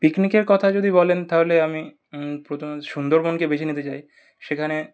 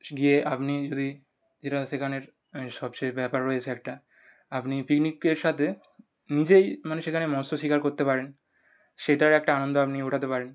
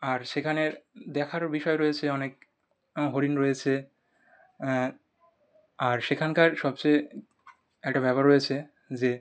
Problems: none marked